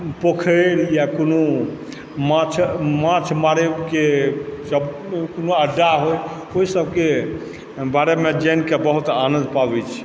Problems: background sounds at intervals